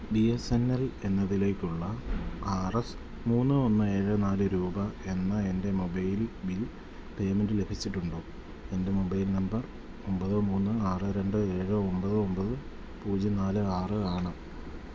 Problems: none marked